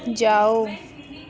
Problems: none marked